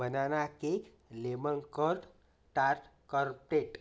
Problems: none marked